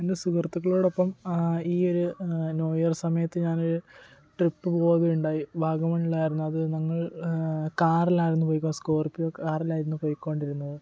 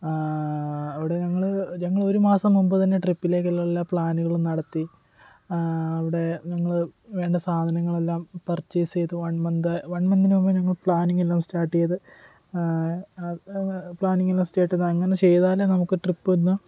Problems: background conversations at intervals, low volume